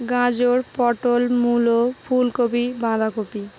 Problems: constant background noise